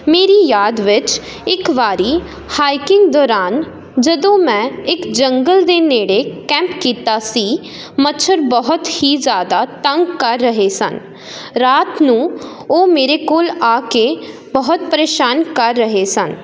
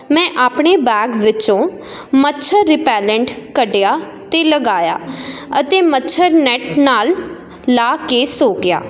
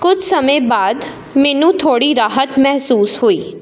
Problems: none marked